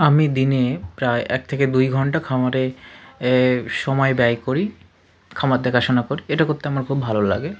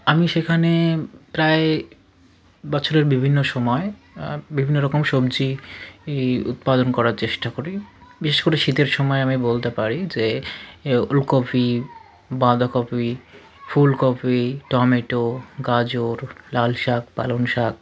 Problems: constant background noise, continuous background conversations